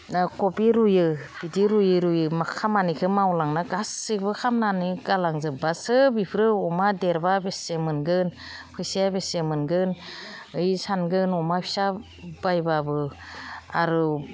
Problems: none marked